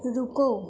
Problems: background sounds at intervals